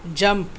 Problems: constant background noise